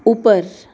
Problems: constant background noise, background conversations at intervals